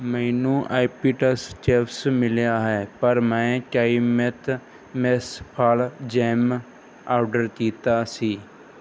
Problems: background sounds at intervals